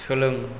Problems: none marked